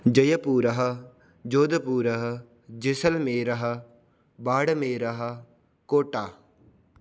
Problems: none marked